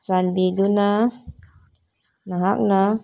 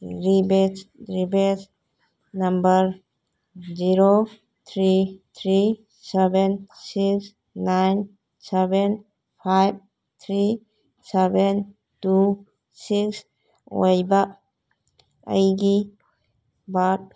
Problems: background conversations at intervals